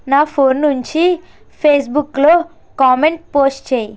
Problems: constant background noise